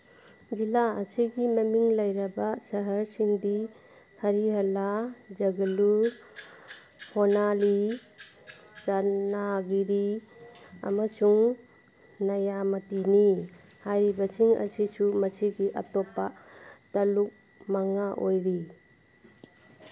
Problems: background sounds at intervals